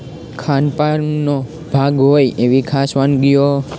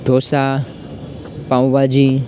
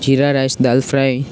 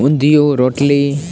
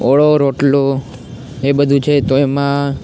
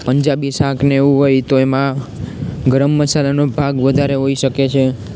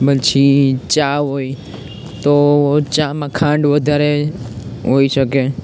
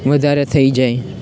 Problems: constant background noise, continuous background conversations